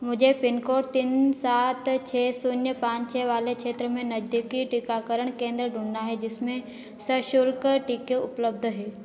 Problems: none marked